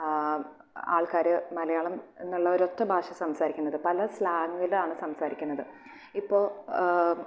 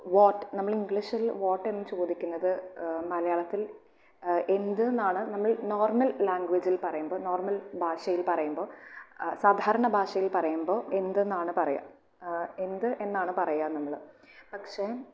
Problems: background sounds at intervals